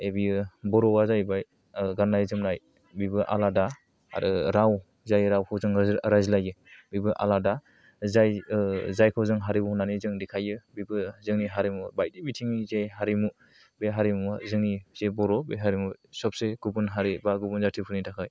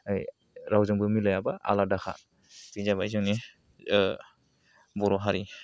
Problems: low volume